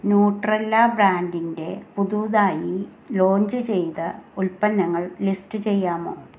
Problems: none marked